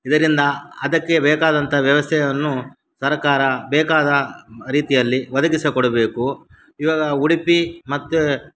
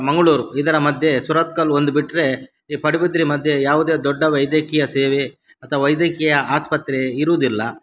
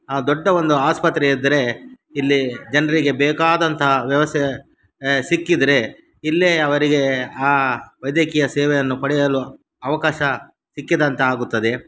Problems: none marked